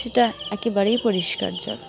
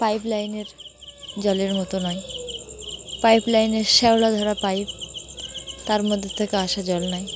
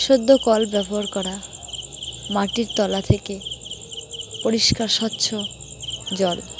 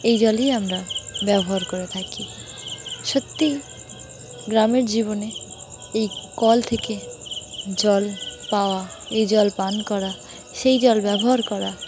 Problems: none marked